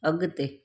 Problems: none marked